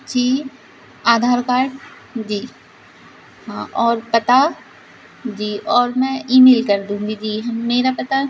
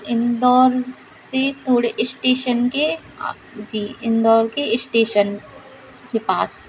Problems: constant background noise